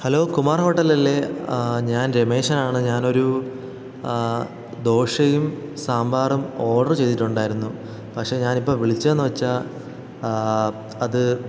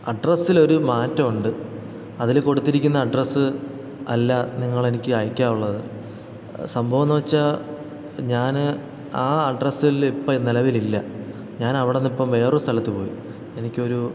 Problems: background sounds at intervals